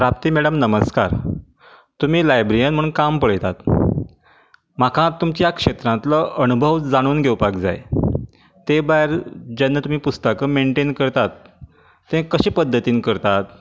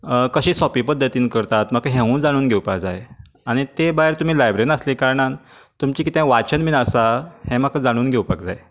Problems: none marked